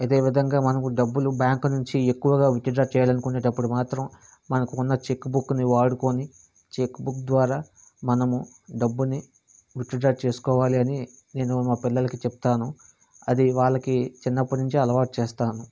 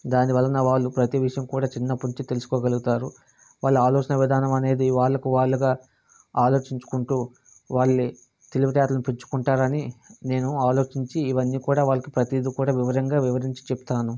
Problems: constant background noise